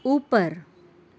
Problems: none marked